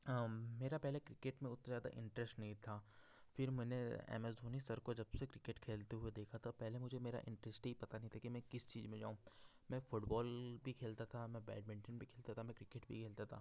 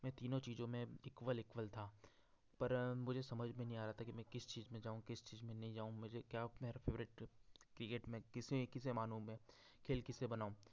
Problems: background sounds at intervals